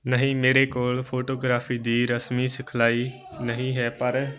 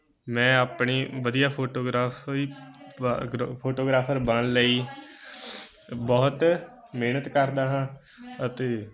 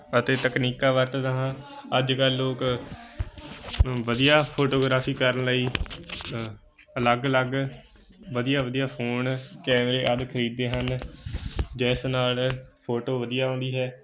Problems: continuous background conversations